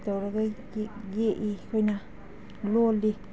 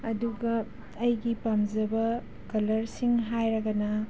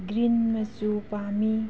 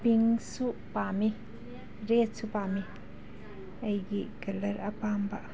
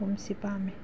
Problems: background sounds at intervals